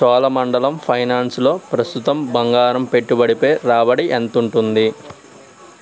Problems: none marked